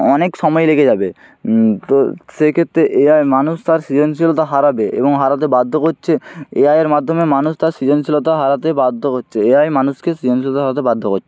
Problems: none marked